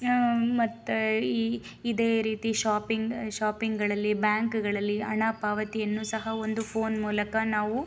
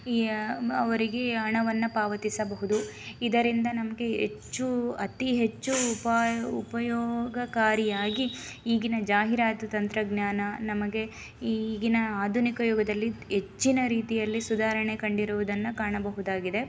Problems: background sounds at intervals